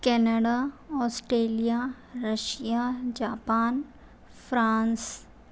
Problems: none marked